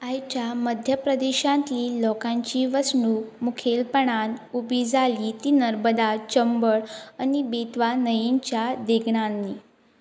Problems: constant background noise